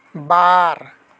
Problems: echo